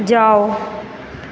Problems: constant background noise